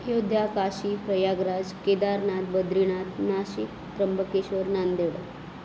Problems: constant background noise